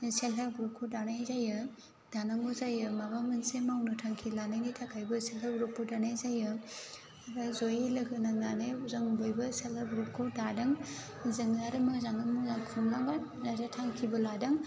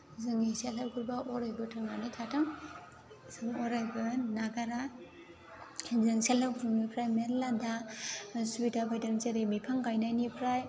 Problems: constant background noise